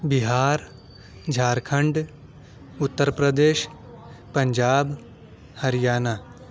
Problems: none marked